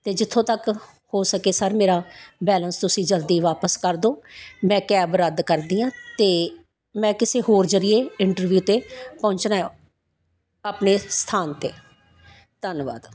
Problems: constant background noise